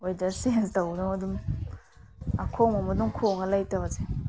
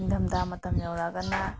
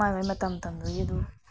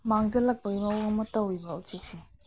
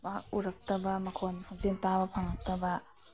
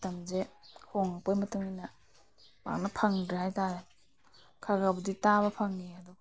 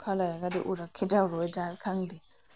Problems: background sounds at intervals